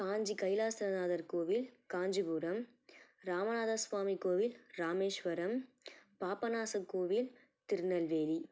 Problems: low volume